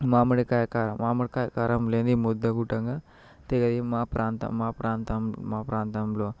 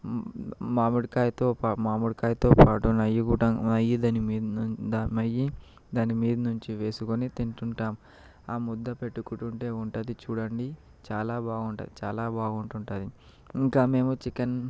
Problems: constant background noise